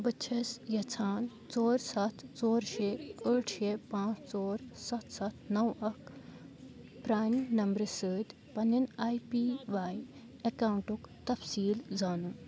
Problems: continuous background conversations